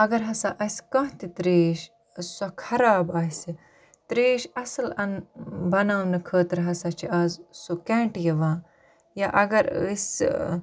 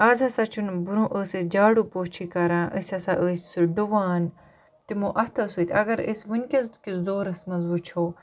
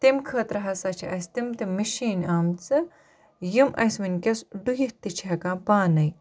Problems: none marked